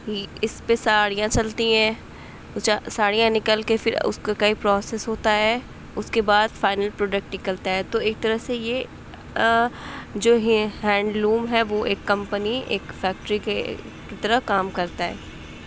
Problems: constant background noise